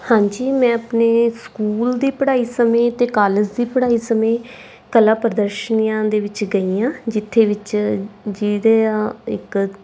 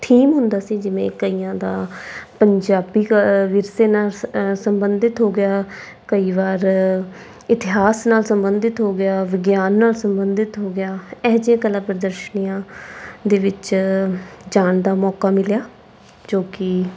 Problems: background sounds at intervals